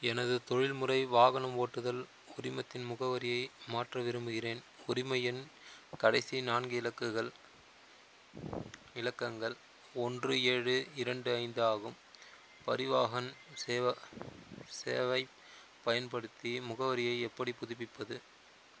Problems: constant background noise